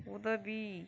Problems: low volume